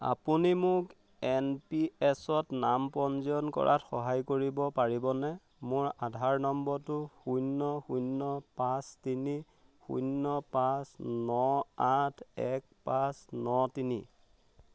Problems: none marked